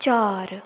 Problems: low volume